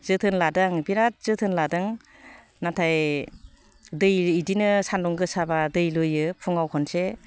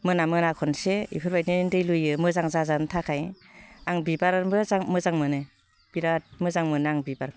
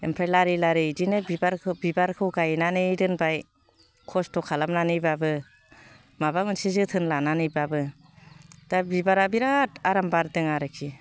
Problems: low volume